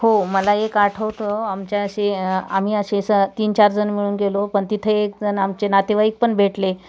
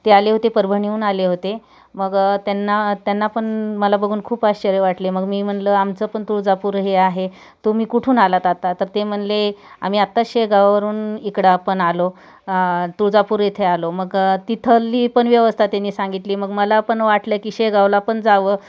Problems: background sounds at intervals